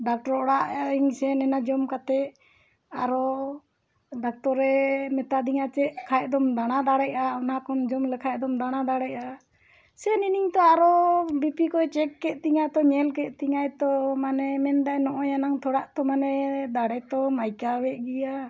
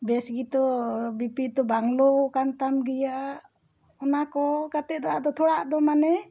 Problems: none marked